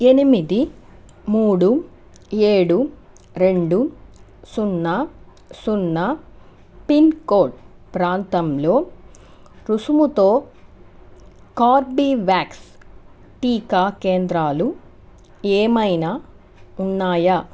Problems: constant background noise